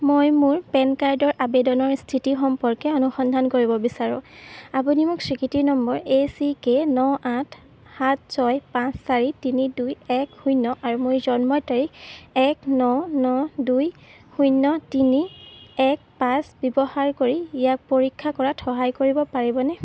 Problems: constant background noise